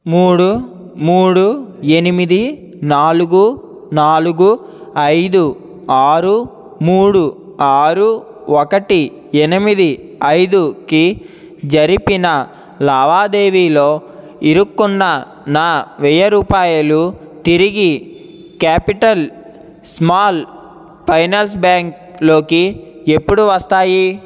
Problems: none marked